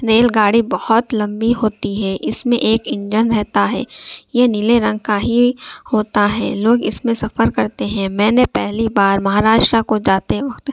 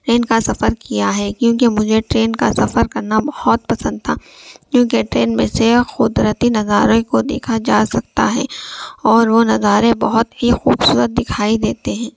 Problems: none marked